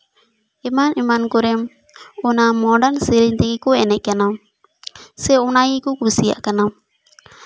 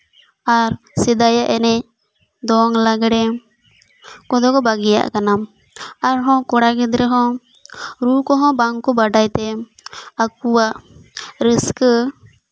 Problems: constant background noise